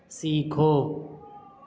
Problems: constant background noise